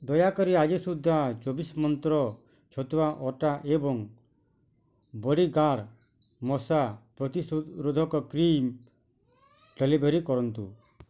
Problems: low volume